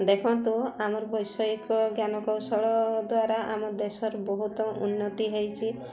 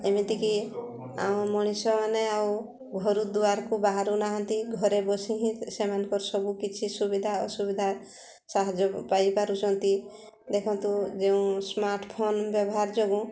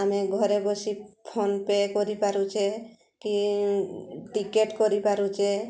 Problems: constant background noise, continuous background conversations